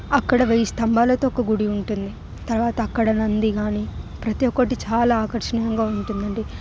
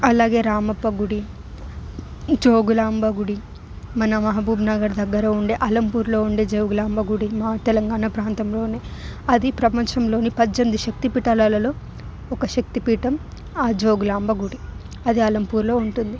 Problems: background sounds at intervals